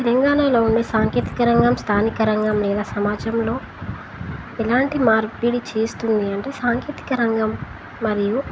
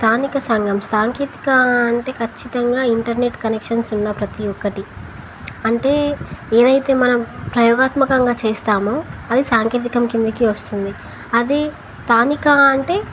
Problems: none marked